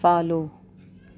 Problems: none marked